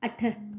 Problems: echo